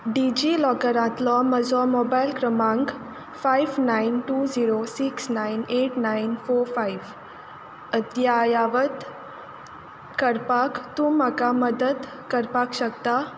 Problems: none marked